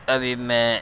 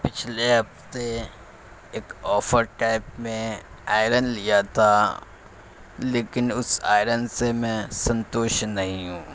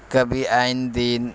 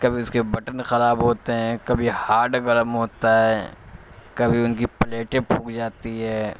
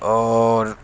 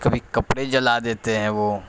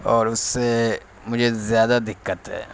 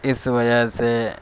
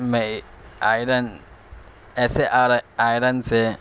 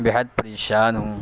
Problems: constant background noise